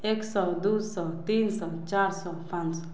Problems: none marked